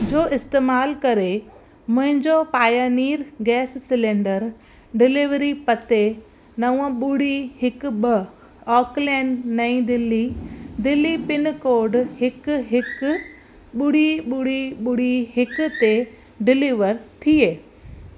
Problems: constant background noise